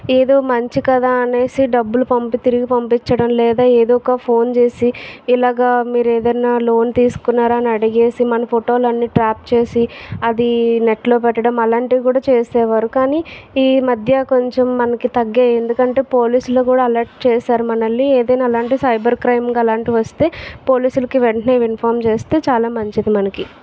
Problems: background sounds at intervals, background conversations at intervals